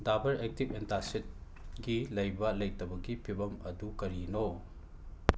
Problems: background sounds at intervals